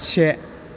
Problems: constant background noise